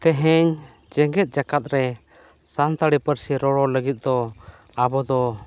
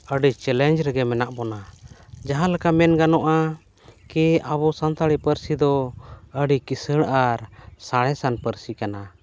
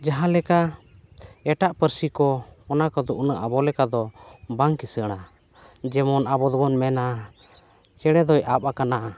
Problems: none marked